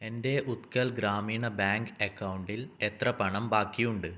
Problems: low volume